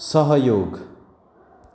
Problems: none marked